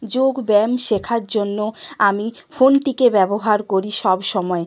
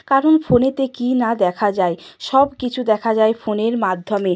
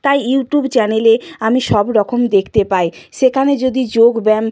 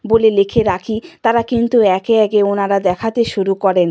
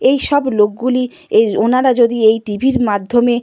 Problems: background sounds at intervals